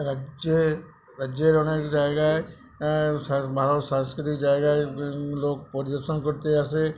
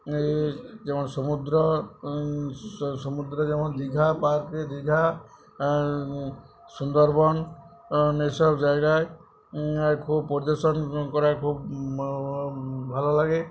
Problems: none marked